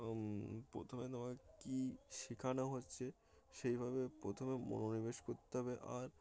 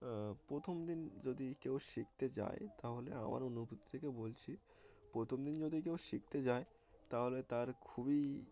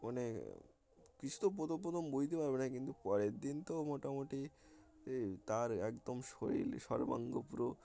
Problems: constant background noise